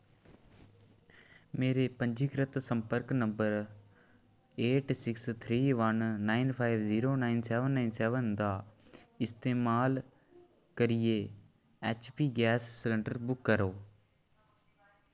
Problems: none marked